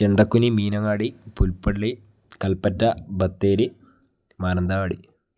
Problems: none marked